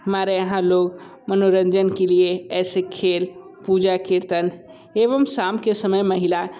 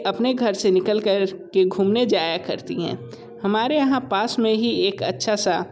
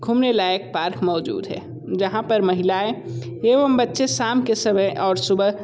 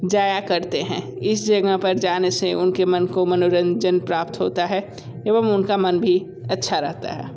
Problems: constant background noise